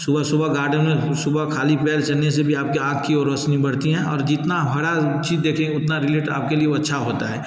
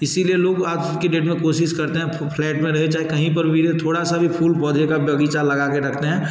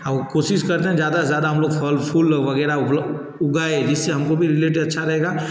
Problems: background sounds at intervals